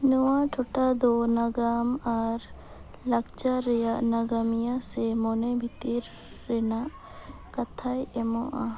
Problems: constant background noise, background conversations at intervals